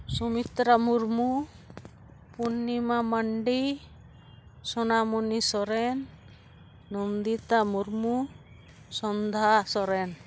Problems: background sounds at intervals